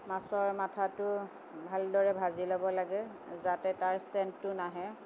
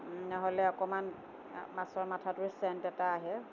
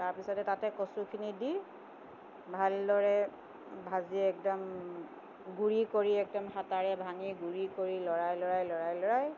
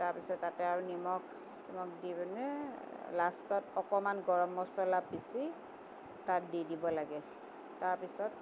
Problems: constant background noise